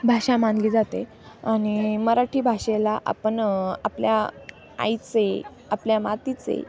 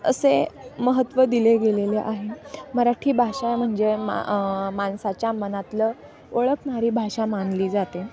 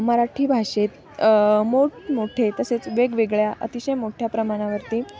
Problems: none marked